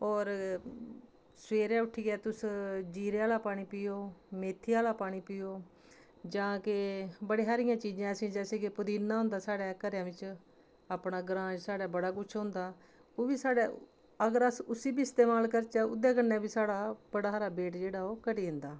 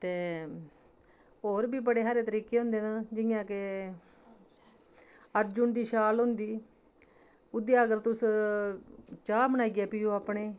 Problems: constant background noise